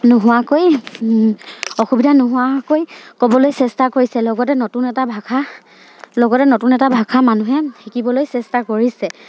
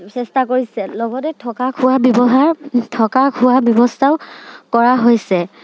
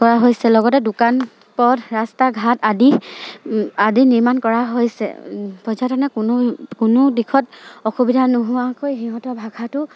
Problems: none marked